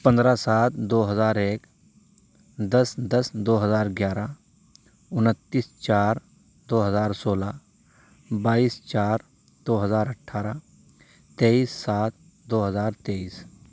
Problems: background sounds at intervals